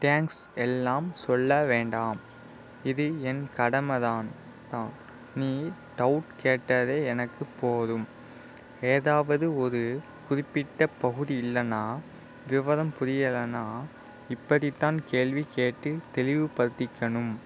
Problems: none marked